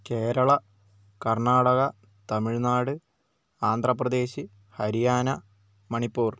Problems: none marked